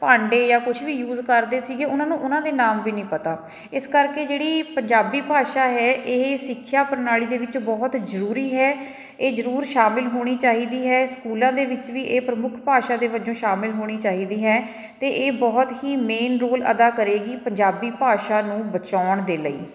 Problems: background sounds at intervals, continuous background conversations